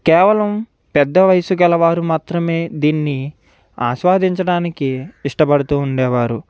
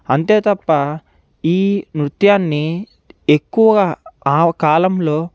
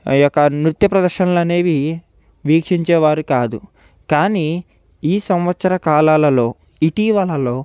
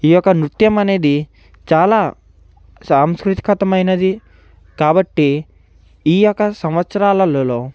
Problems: background sounds at intervals